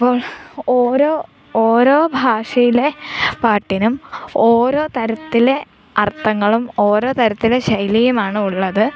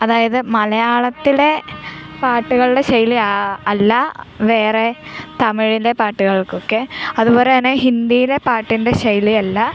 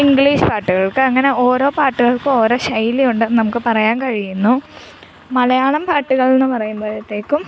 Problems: background sounds at intervals